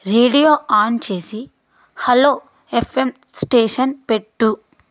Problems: none marked